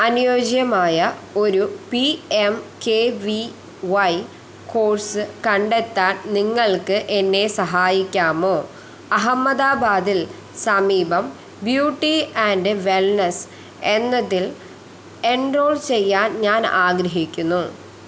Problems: constant background noise